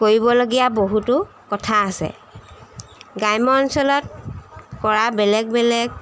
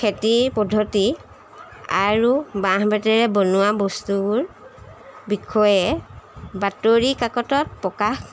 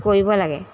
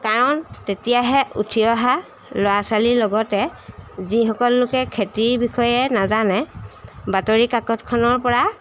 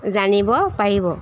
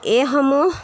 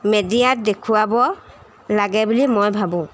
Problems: constant background noise